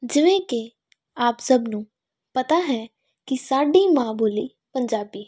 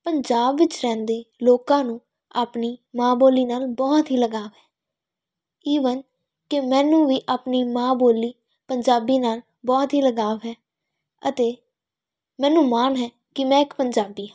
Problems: none marked